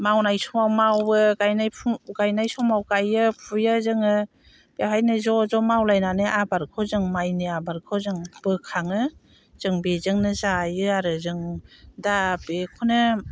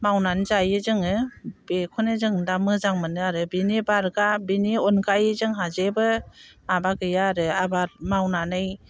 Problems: none marked